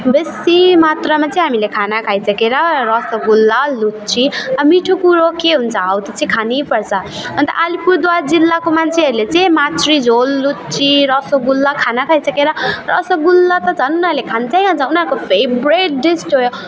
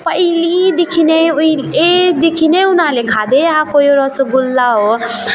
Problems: none marked